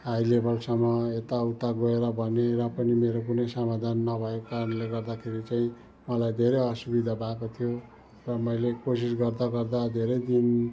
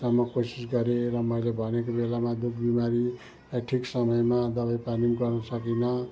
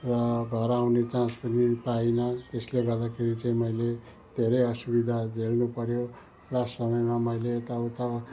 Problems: continuous background conversations